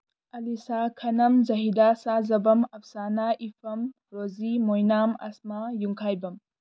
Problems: none marked